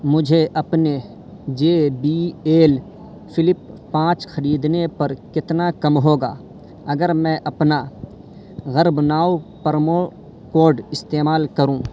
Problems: constant background noise